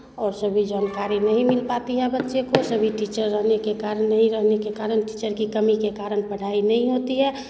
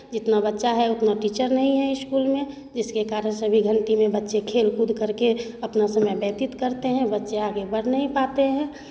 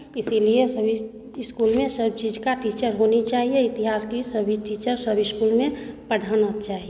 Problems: constant background noise, background conversations at intervals